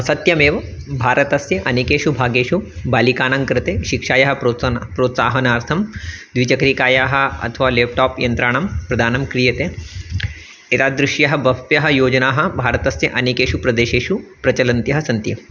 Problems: constant background noise